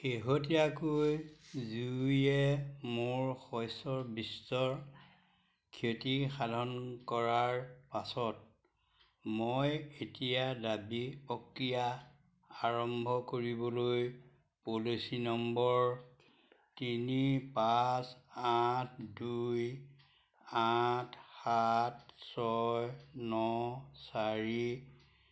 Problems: none marked